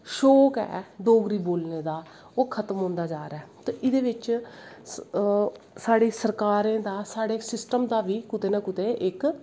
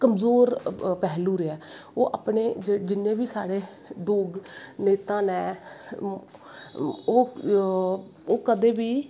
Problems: constant background noise